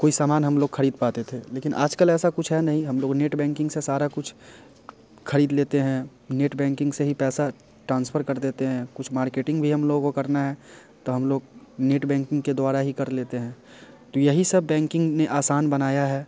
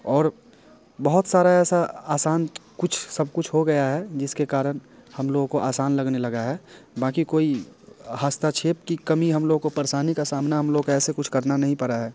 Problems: none marked